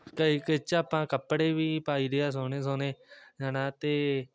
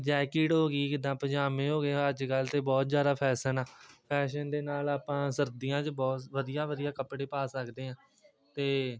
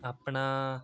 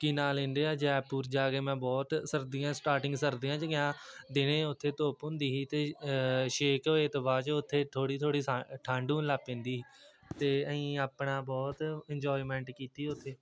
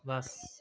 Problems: background sounds at intervals, continuous background conversations